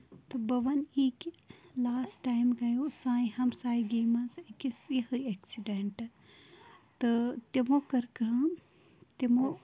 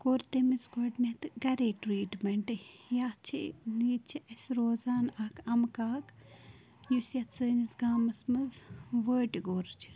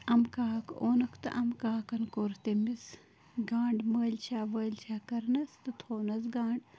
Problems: constant background noise, continuous background conversations, low volume